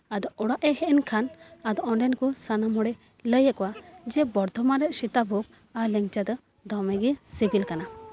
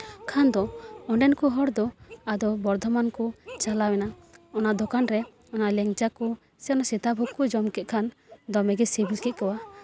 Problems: none marked